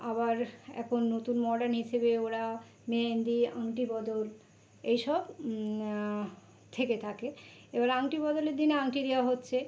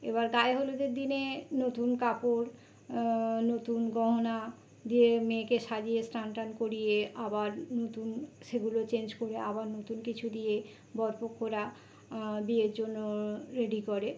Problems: constant background noise